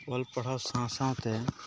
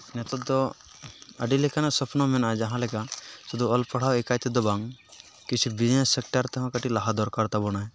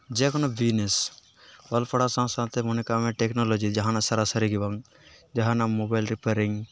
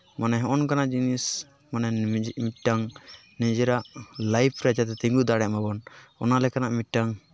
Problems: constant background noise